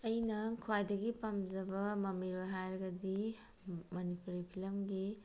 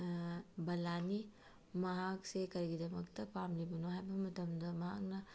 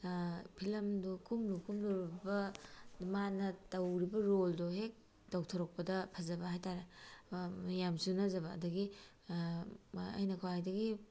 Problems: background sounds at intervals